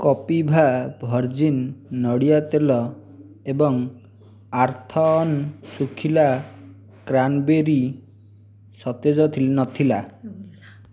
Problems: background sounds at intervals